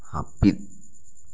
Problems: none marked